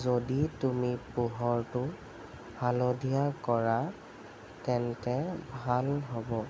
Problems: constant background noise